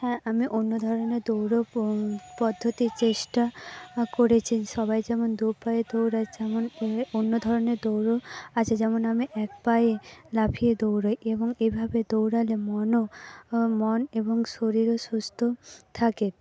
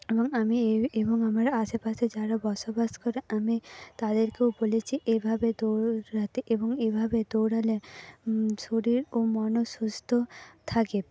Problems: background conversations at intervals